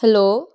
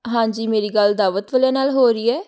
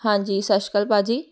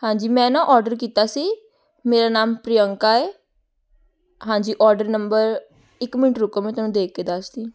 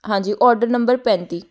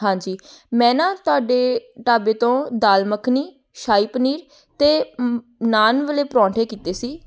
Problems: none marked